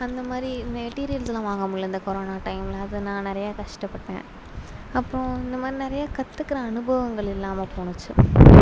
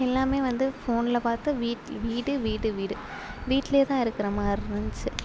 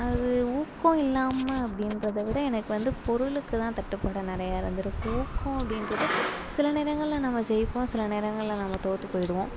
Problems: constant background noise